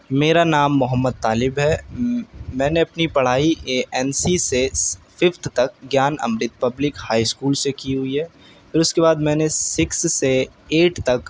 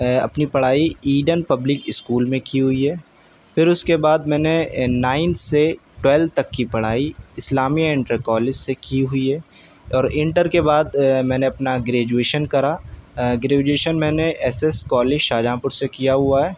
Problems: none marked